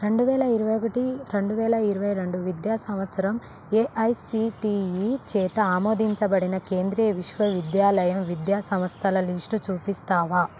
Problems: constant background noise